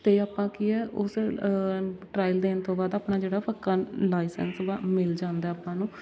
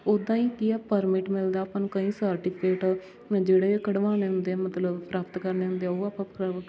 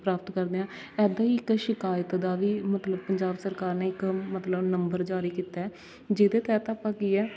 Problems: none marked